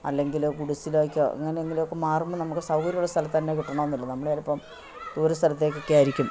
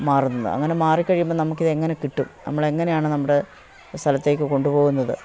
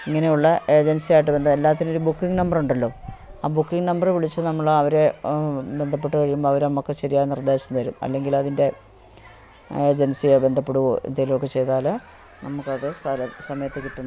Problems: constant background noise